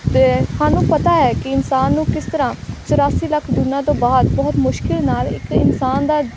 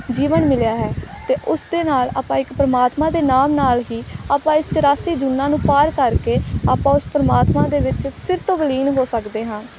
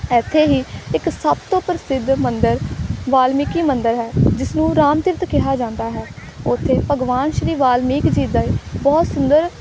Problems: constant background noise